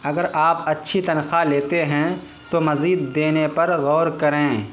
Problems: constant background noise